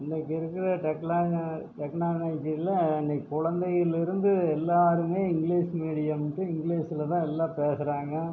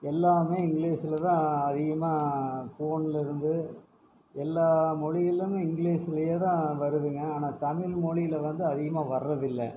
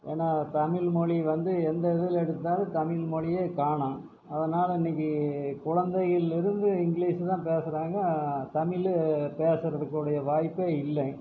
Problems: low volume